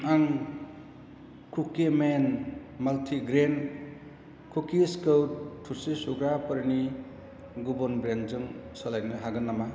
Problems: constant background noise